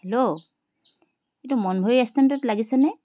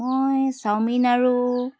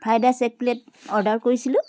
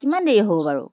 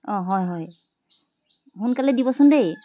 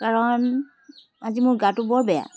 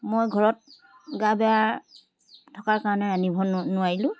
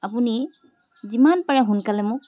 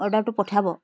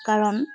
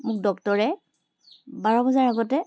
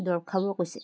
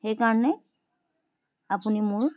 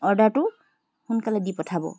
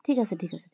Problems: constant background noise